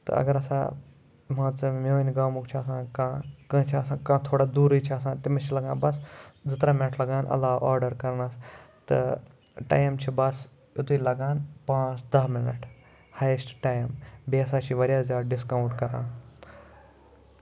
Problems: background sounds at intervals